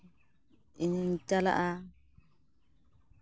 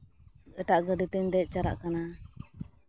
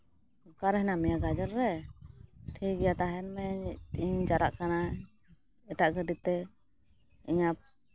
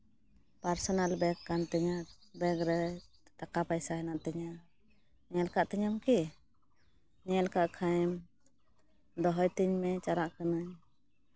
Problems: constant background noise